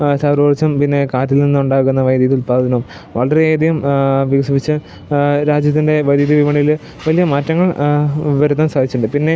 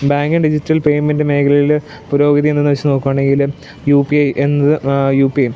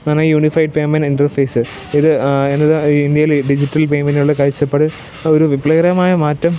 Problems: background sounds at intervals, low volume